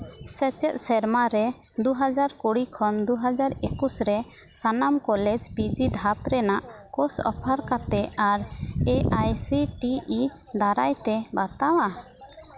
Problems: constant background noise, background conversations at intervals